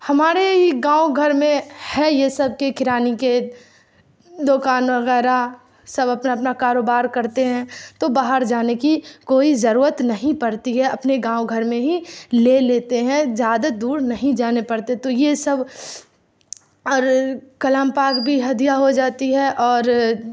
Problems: background sounds at intervals